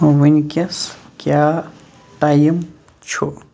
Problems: none marked